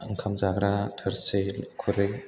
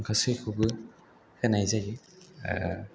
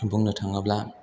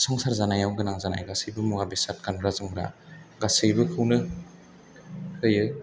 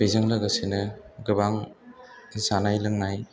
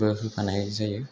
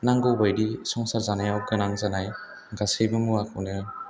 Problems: background conversations at intervals